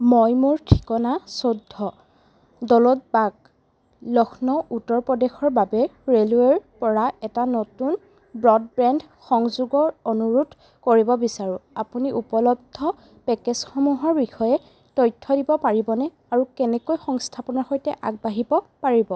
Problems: constant background noise